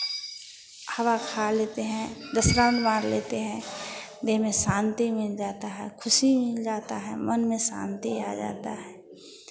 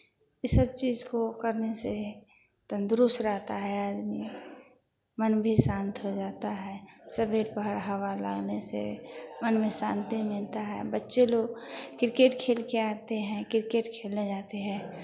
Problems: constant background noise